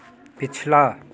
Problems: none marked